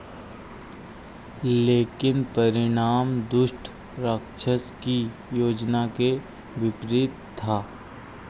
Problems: none marked